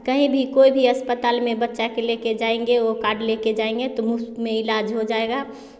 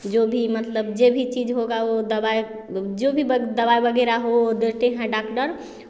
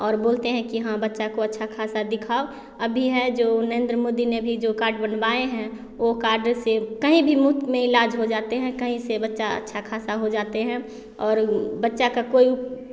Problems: constant background noise